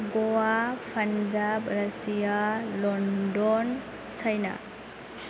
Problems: constant background noise